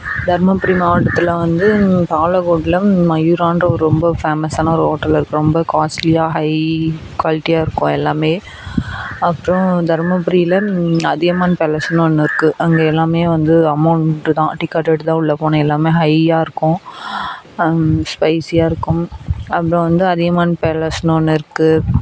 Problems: background sounds at intervals